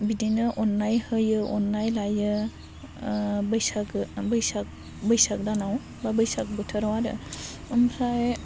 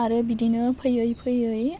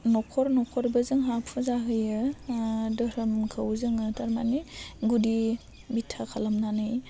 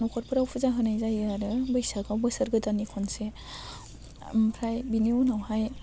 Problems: constant background noise